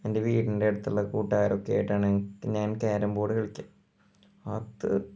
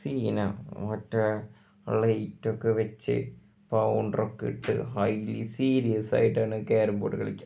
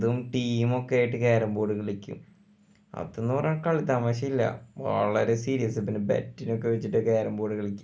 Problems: none marked